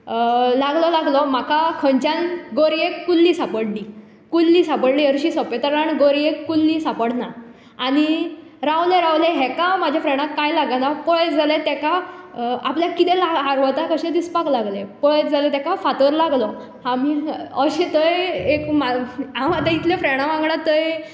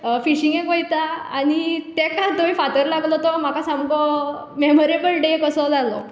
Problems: constant background noise